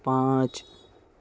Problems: none marked